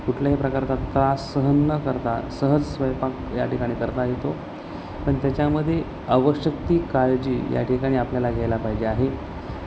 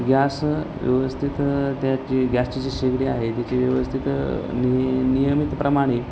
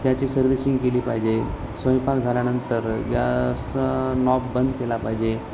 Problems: constant background noise, background conversations at intervals